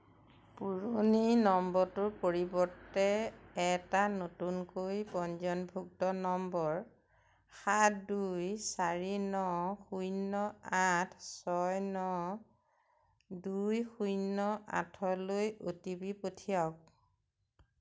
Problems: none marked